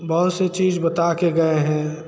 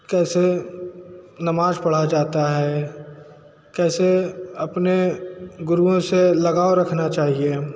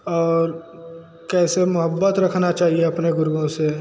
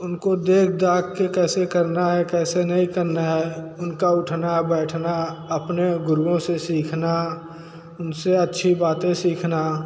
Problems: constant background noise